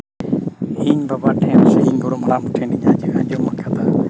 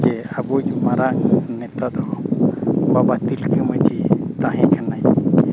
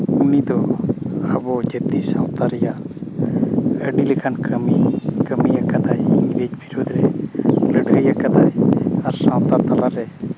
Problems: constant background noise